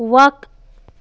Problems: none marked